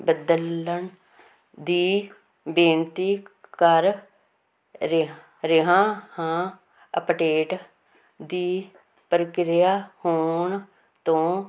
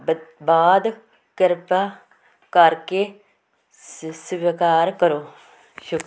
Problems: constant background noise